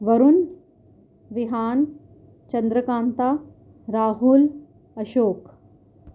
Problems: none marked